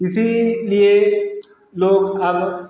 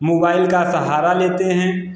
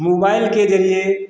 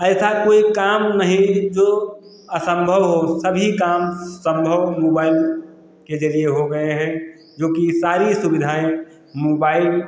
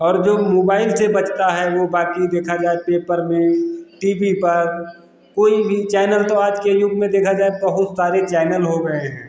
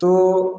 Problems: constant background noise